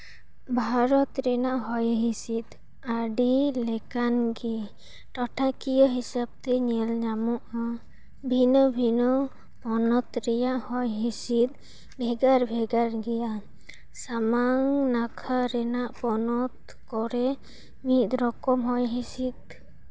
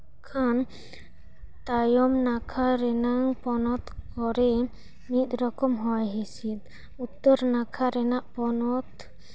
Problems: background sounds at intervals